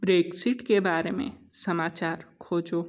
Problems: none marked